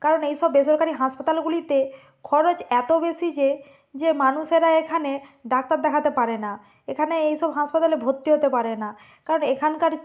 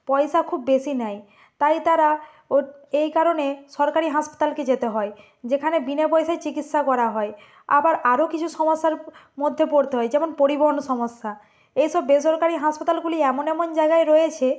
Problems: none marked